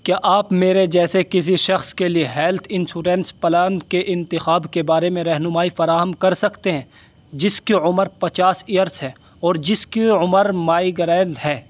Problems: constant background noise